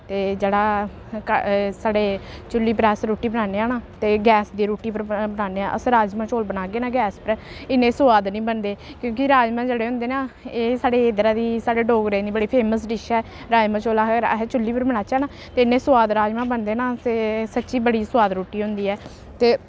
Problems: constant background noise